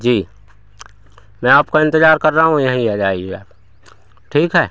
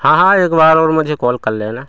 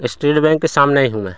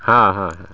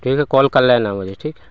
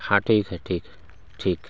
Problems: constant background noise, continuous background conversations